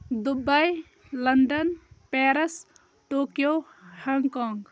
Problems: background conversations at intervals